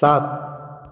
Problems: background sounds at intervals